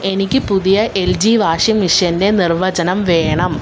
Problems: constant background noise